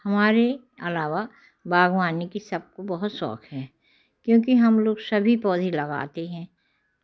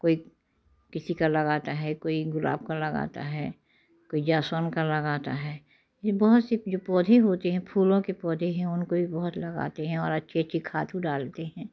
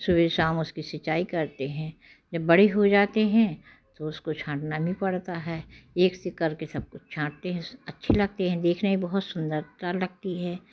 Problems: constant background noise